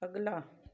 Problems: none marked